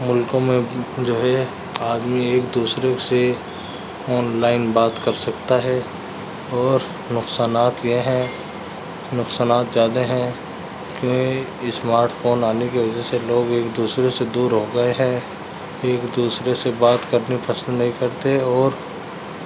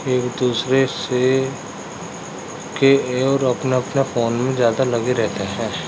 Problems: constant background noise